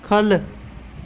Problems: constant background noise